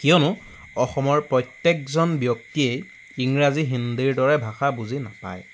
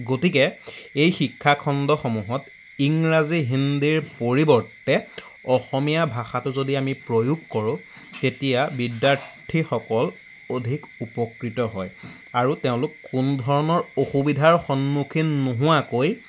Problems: background sounds at intervals